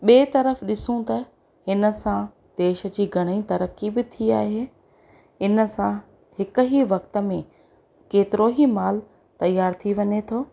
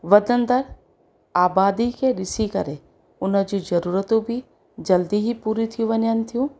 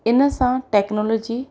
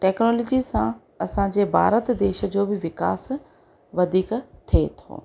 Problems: constant background noise